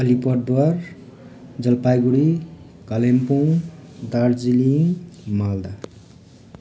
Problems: constant background noise